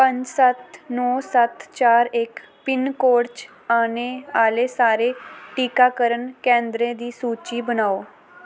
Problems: none marked